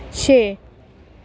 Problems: constant background noise